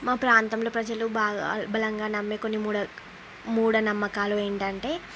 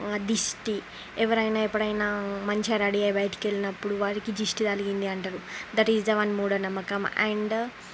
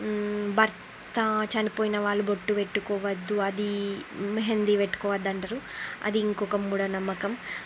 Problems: constant background noise